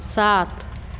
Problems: constant background noise, echo